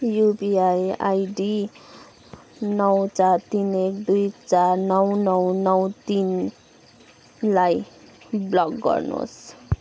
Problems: none marked